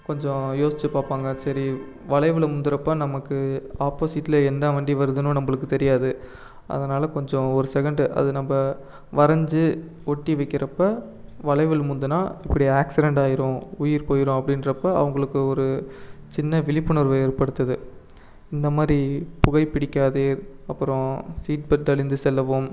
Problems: none marked